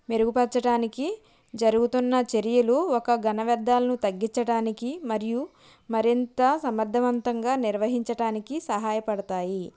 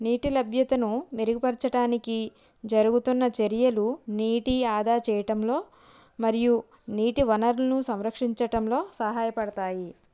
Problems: none marked